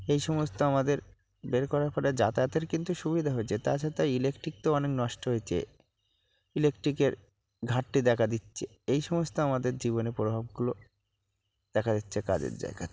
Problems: constant background noise, low volume